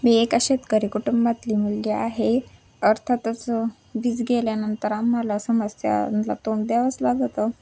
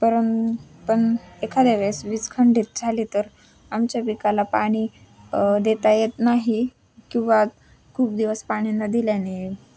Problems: none marked